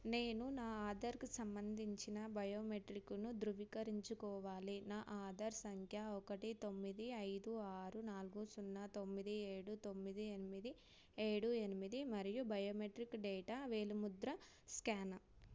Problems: none marked